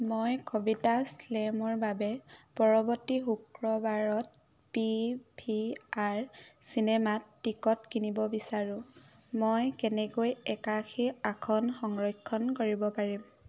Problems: constant background noise